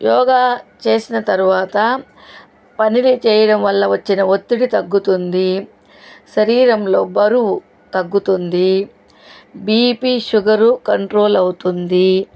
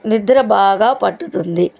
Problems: none marked